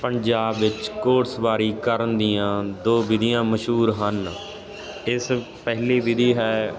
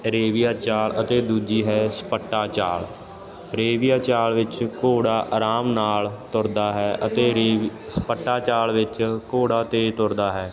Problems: constant background noise